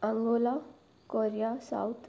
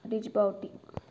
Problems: background sounds at intervals